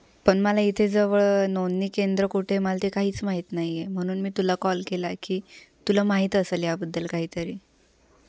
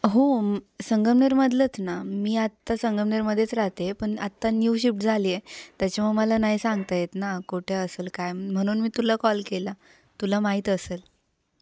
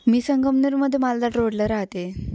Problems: none marked